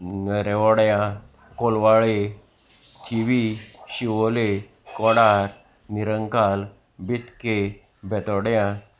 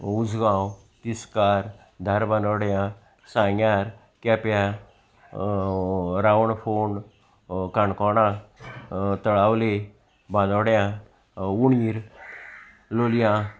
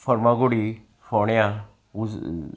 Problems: constant background noise, continuous background conversations